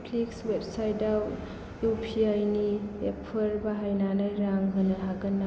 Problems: low volume